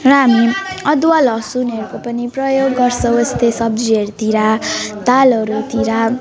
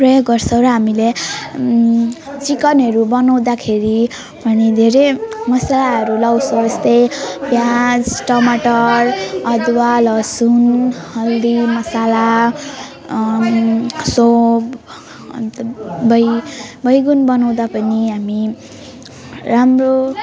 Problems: continuous background conversations